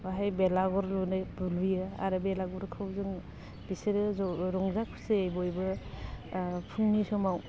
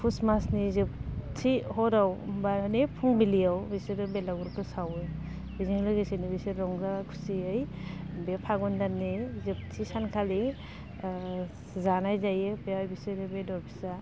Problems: none marked